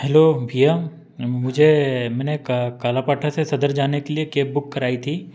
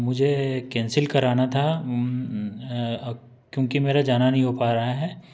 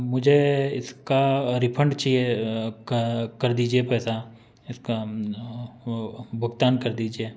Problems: constant background noise